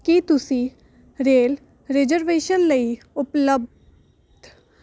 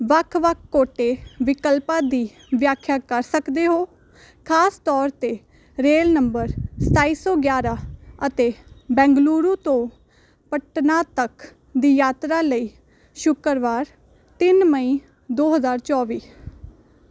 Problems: none marked